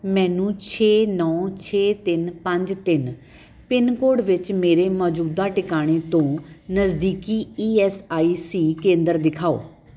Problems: constant background noise